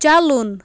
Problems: background sounds at intervals